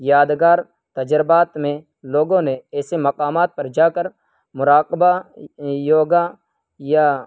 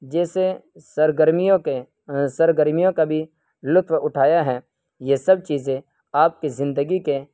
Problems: none marked